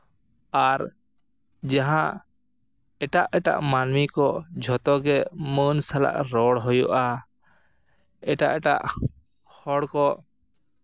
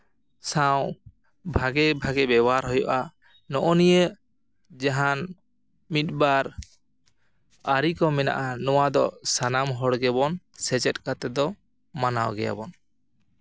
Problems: echo